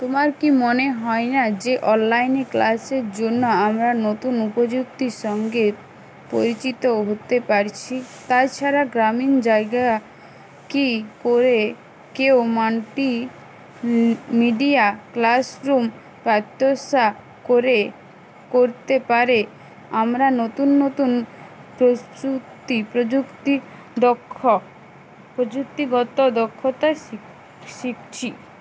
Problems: constant background noise